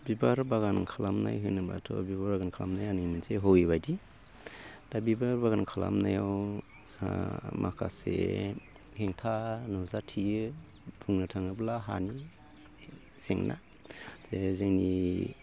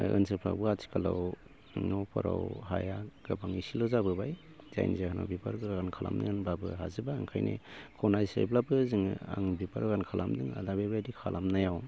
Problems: constant background noise